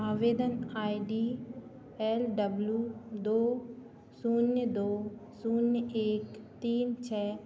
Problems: none marked